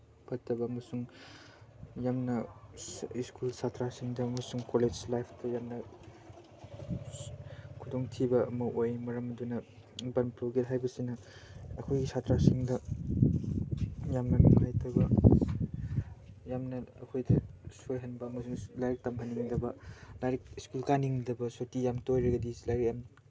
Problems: low volume